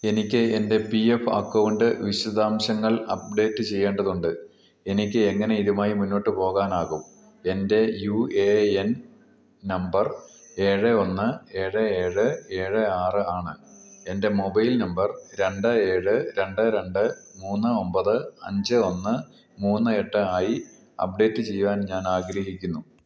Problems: low volume